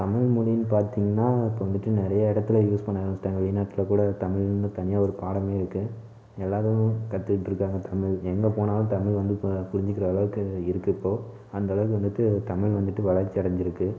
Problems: none marked